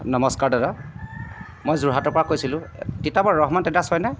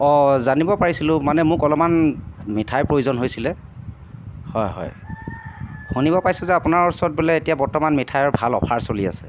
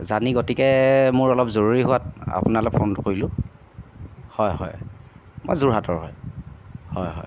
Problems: background sounds at intervals